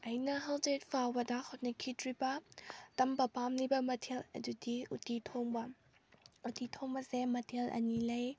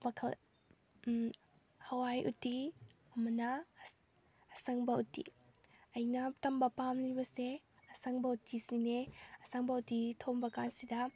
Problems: none marked